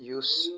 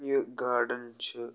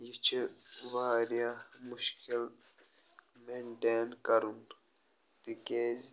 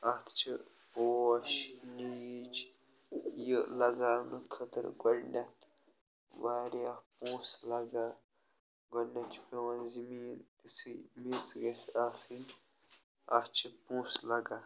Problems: none marked